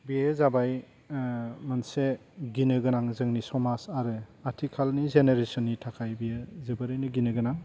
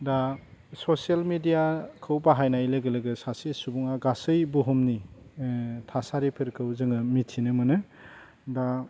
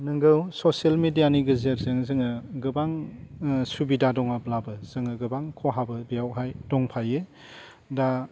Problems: low volume